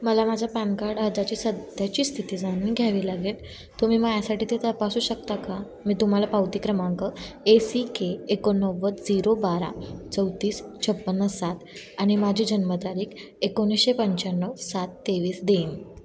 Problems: constant background noise